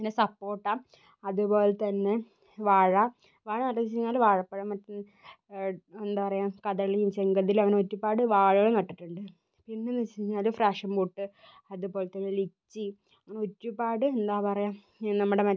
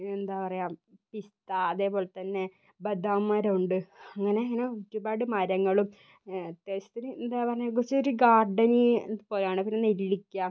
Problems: low volume